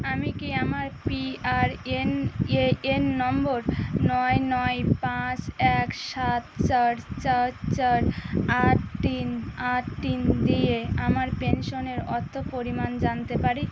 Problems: constant background noise